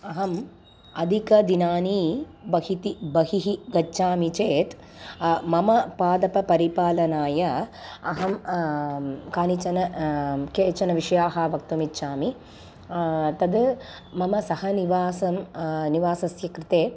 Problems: background sounds at intervals